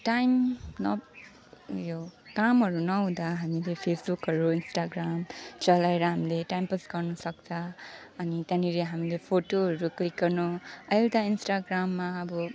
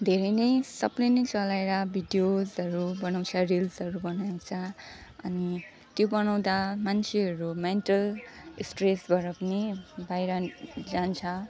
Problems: background sounds at intervals